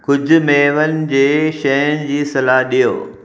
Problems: echo